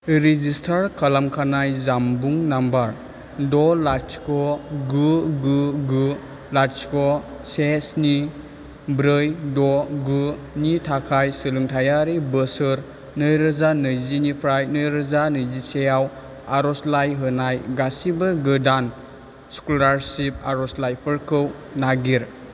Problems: none marked